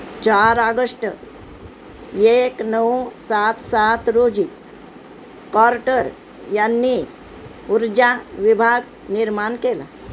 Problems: constant background noise